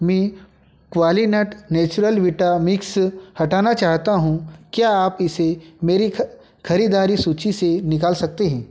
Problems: none marked